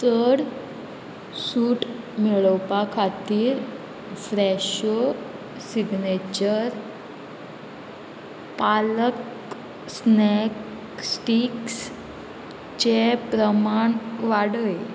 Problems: constant background noise